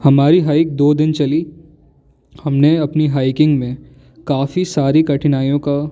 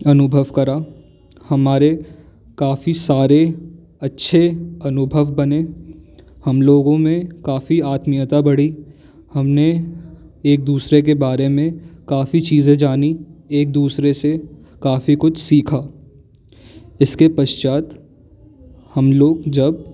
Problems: constant background noise